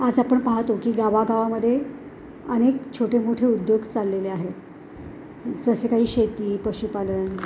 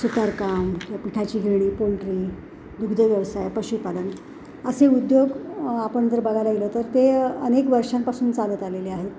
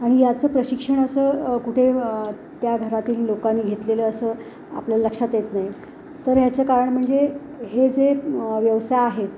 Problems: none marked